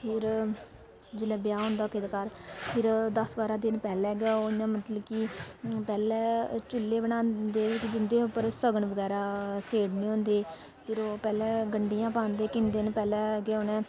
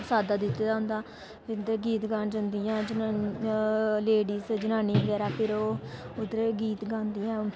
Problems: constant background noise